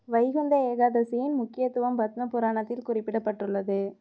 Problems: none marked